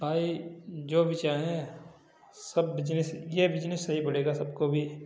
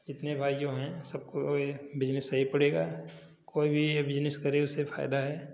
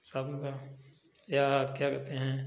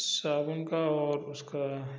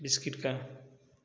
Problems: none marked